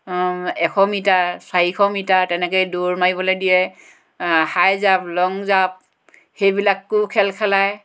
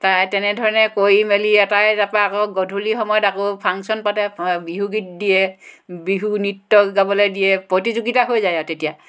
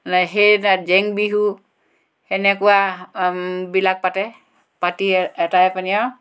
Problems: none marked